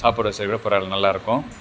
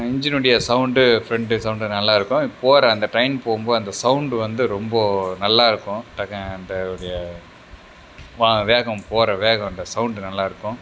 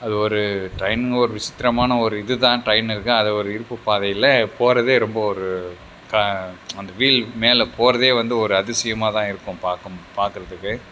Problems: none marked